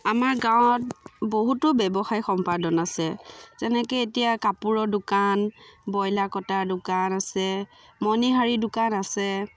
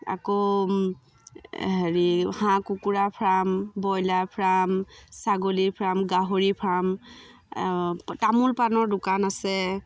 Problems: background sounds at intervals